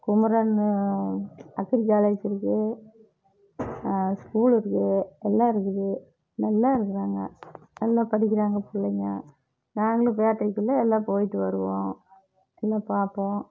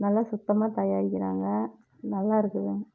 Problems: low volume